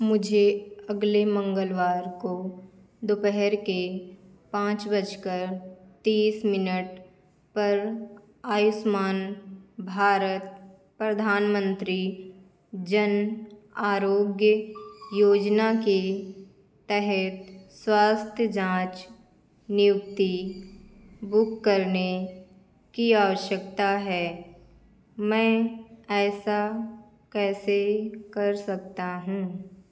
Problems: background sounds at intervals